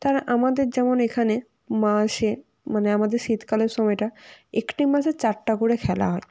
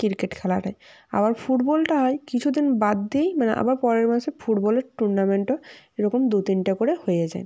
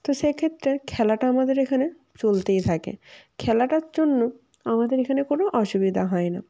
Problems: background sounds at intervals